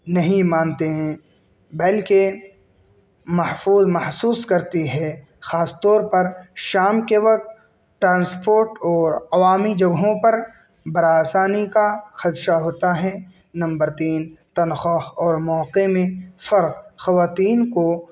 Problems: none marked